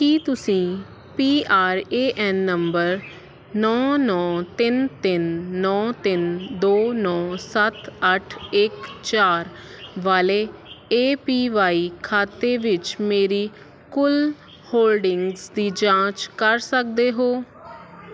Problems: constant background noise